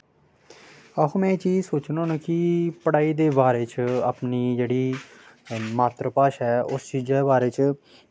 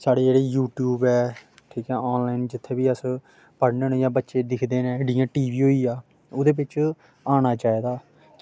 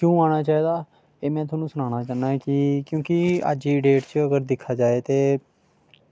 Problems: background sounds at intervals